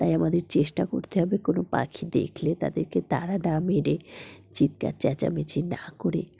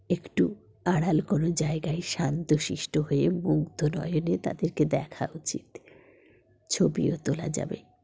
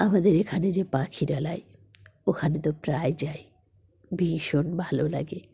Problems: background sounds at intervals